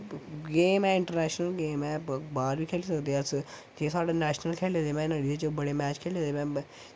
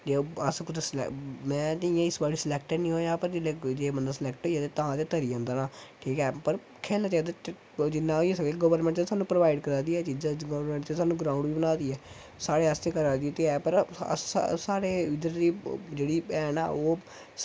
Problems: constant background noise